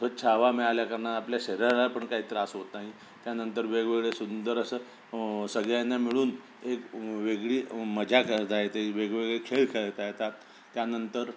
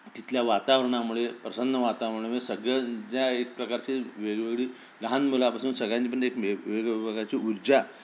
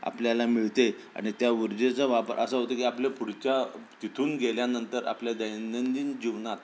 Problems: none marked